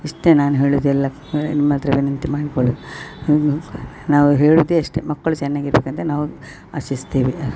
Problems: none marked